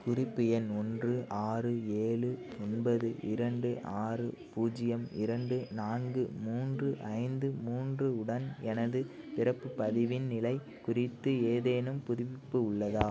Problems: constant background noise